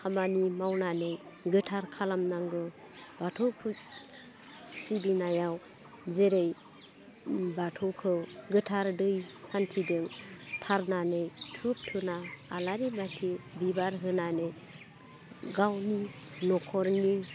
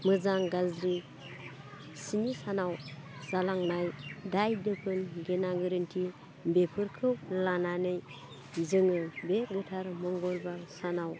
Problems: constant background noise